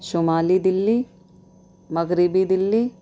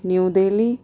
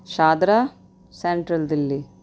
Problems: none marked